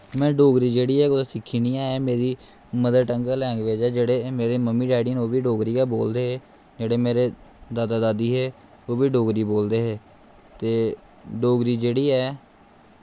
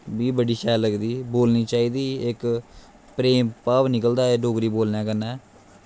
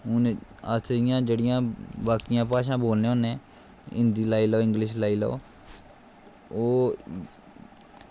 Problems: constant background noise